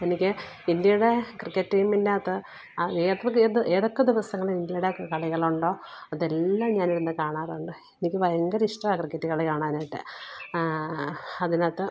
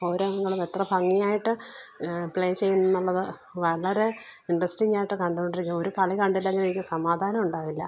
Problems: low volume